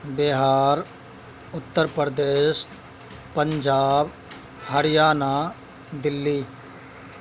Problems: constant background noise, background conversations at intervals